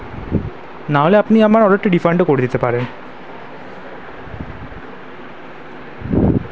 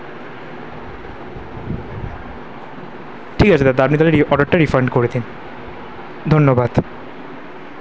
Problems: none marked